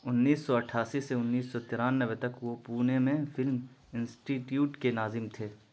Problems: constant background noise